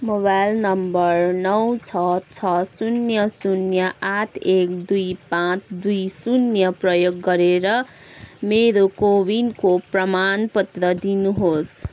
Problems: none marked